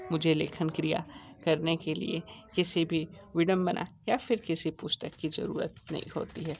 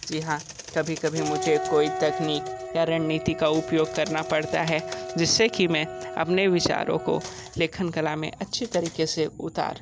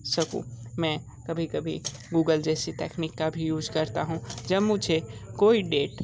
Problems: background sounds at intervals, background conversations at intervals